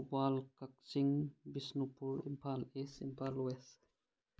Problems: none marked